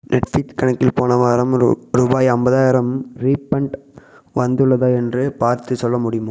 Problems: echo